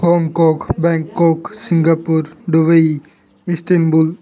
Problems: continuous background conversations